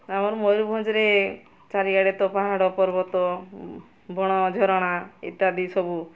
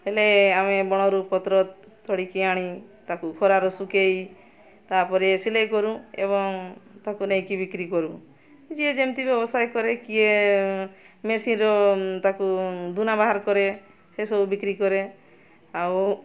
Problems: constant background noise, continuous background conversations